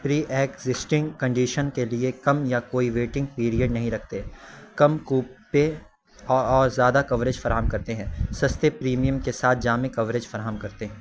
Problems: constant background noise